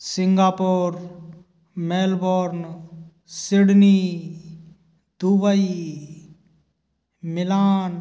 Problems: none marked